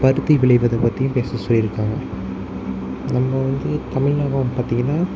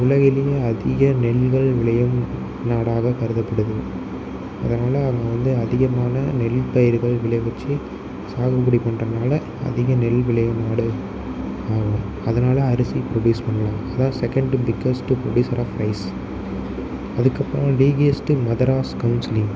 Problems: constant background noise